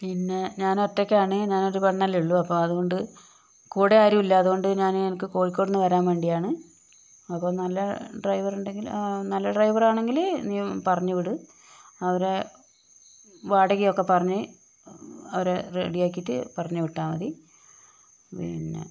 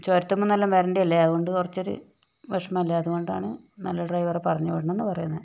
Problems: constant background noise